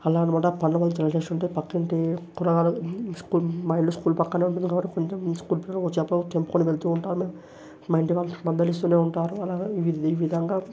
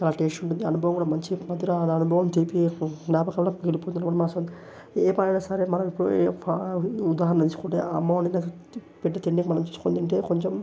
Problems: none marked